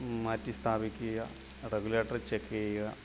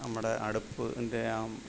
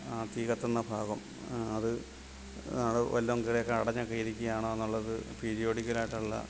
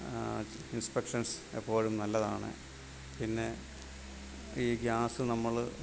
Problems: constant background noise, low volume